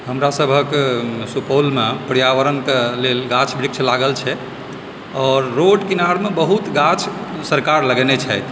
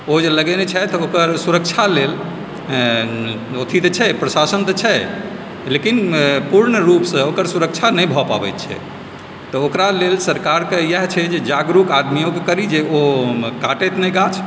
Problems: constant background noise